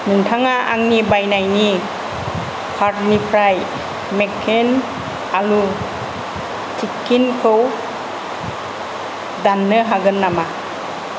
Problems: none marked